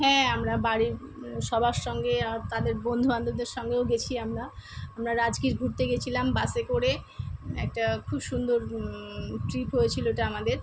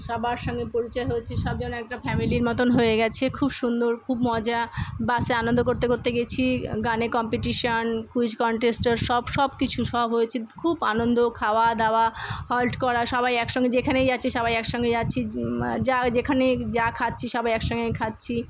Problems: constant background noise